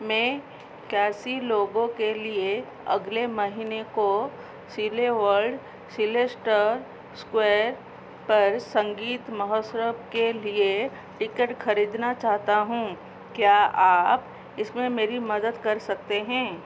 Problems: constant background noise